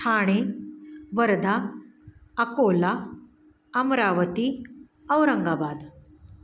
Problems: none marked